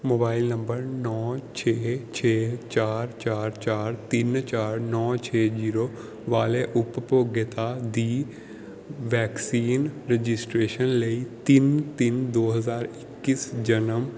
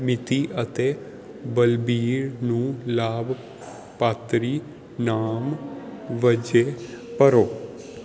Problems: none marked